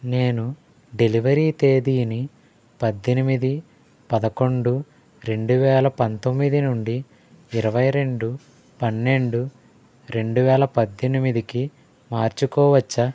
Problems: none marked